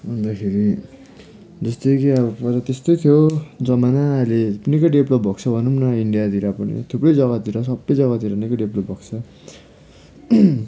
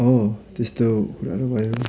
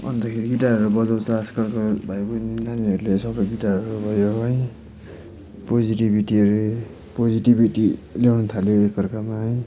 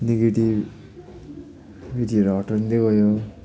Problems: constant background noise